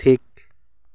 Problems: none marked